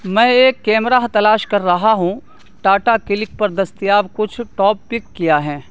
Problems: constant background noise